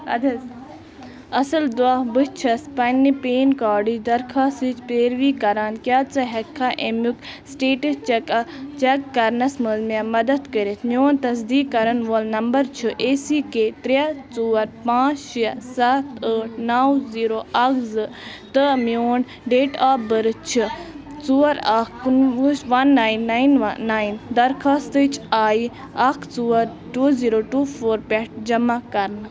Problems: constant background noise, continuous background conversations